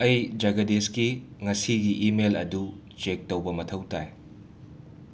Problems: constant background noise